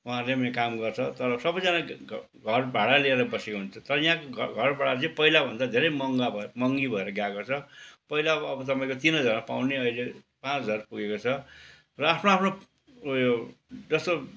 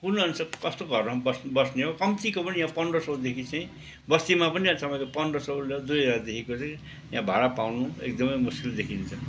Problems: background sounds at intervals